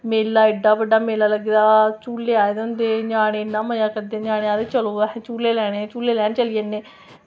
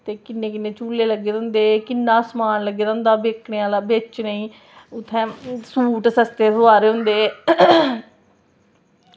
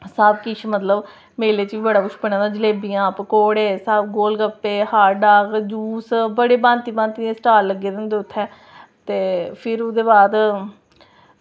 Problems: none marked